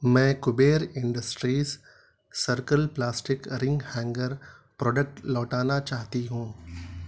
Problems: none marked